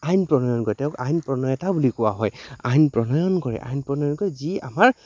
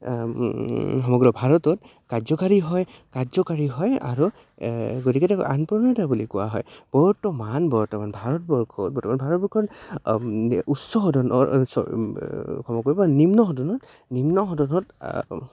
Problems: constant background noise